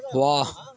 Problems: constant background noise